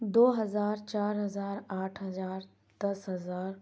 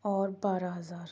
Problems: none marked